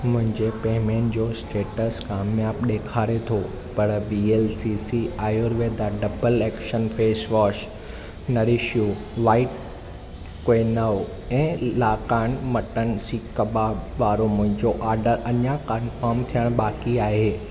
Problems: none marked